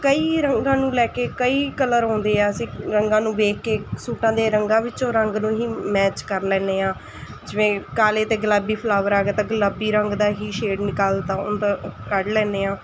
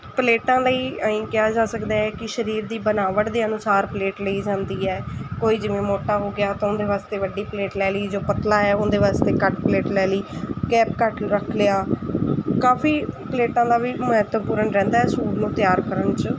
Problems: constant background noise